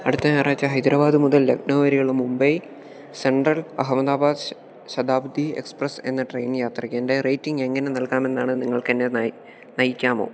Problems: continuous background conversations